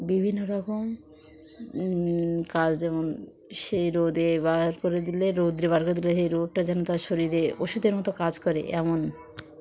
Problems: none marked